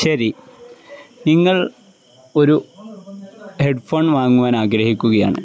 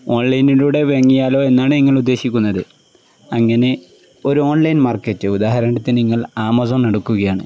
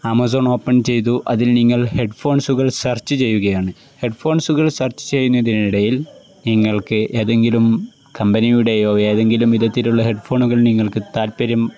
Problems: background sounds at intervals